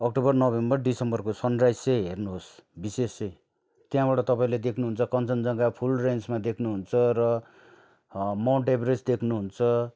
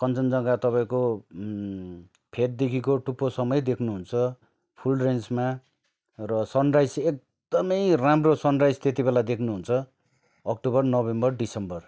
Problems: none marked